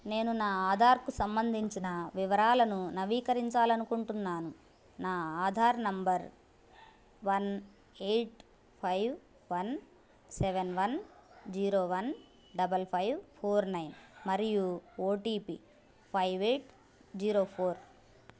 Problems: background sounds at intervals